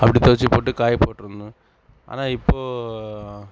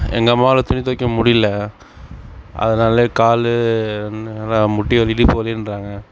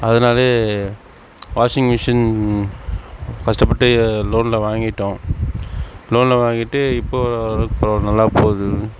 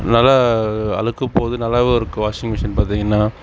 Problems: background sounds at intervals